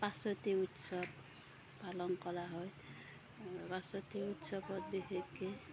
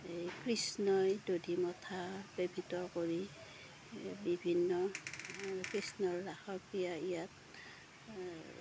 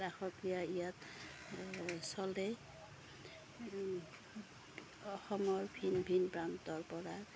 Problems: background sounds at intervals, background conversations at intervals